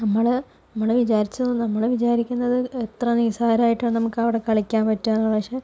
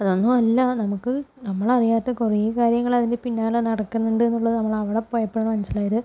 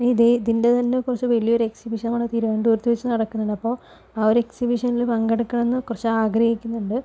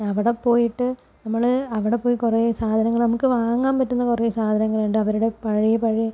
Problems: none marked